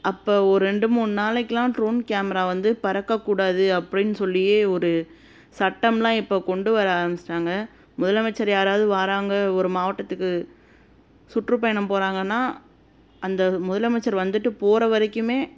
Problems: constant background noise